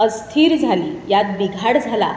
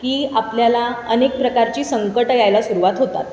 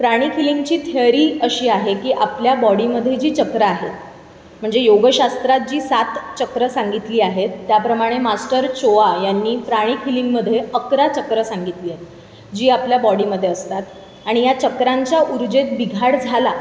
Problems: constant background noise, background conversations at intervals